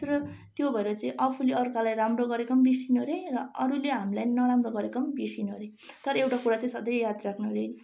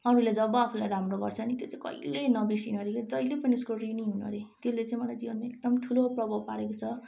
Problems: constant background noise